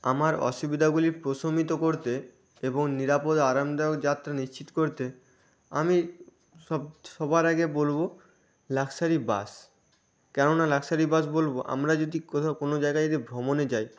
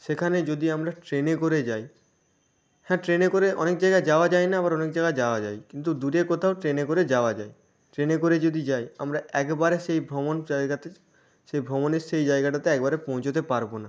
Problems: none marked